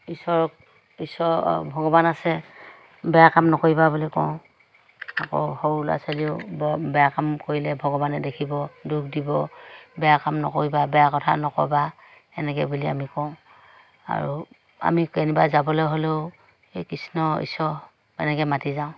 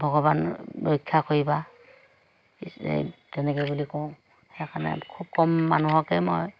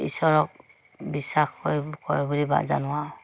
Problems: none marked